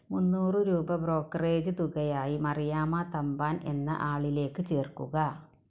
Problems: background sounds at intervals